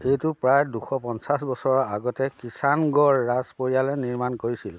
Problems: none marked